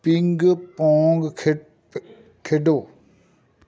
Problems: background conversations at intervals